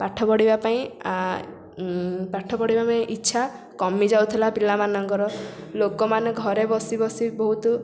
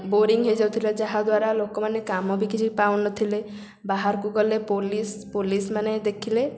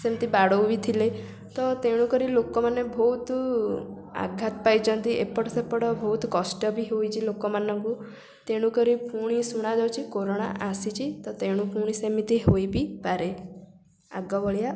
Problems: constant background noise